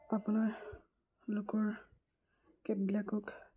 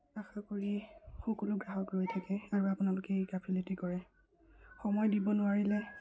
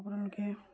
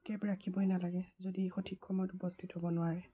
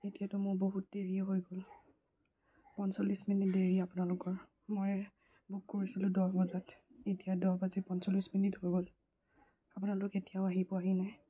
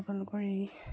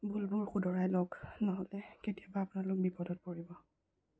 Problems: low volume